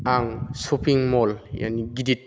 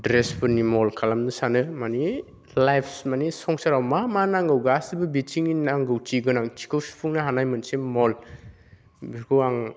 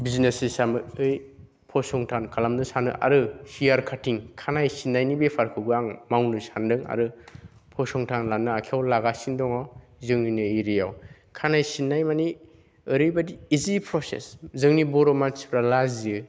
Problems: none marked